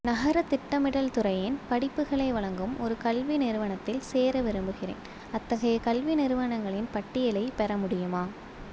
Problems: none marked